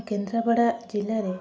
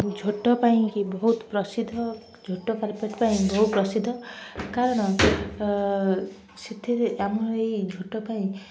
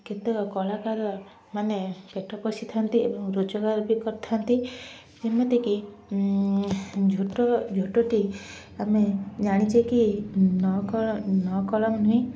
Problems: constant background noise, continuous background conversations, low volume